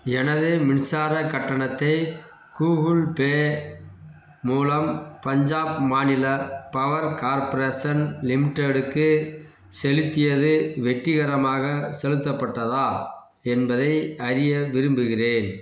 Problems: background sounds at intervals